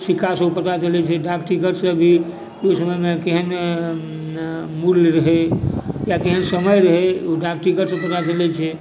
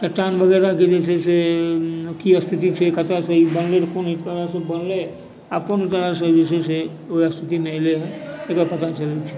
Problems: background sounds at intervals, background conversations at intervals